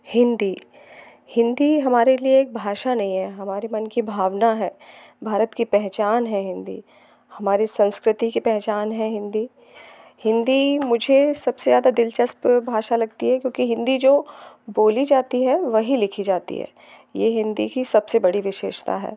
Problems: constant background noise